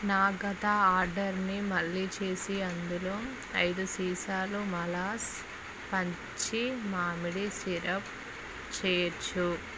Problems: none marked